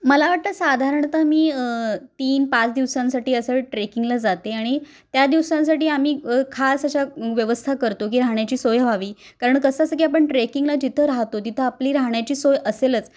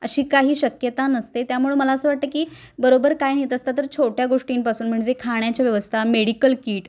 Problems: constant background noise